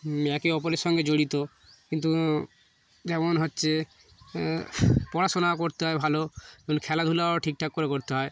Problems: none marked